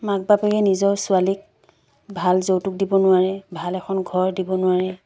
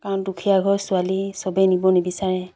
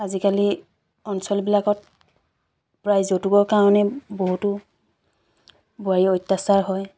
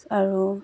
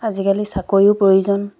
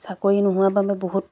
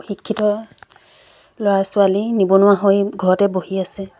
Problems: background sounds at intervals